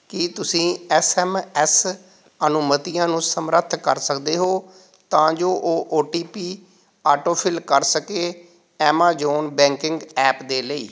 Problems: background sounds at intervals